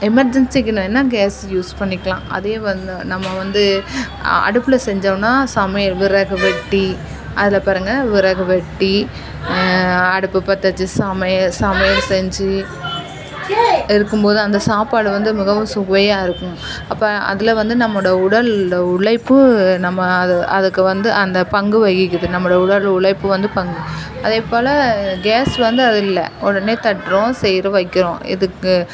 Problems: background sounds at intervals